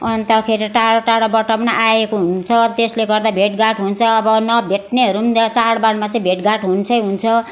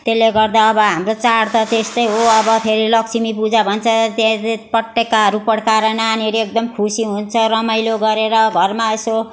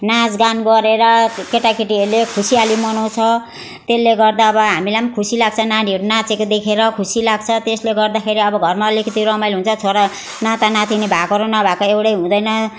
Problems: background sounds at intervals